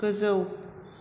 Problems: constant background noise